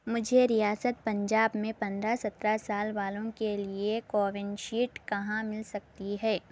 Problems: none marked